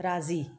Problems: none marked